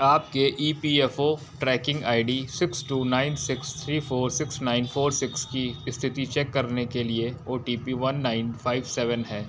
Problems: background sounds at intervals